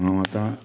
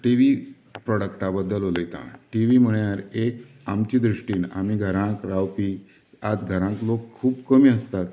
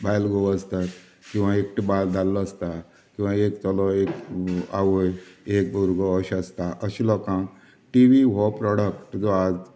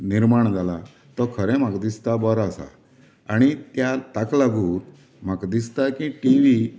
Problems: constant background noise